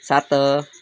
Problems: none marked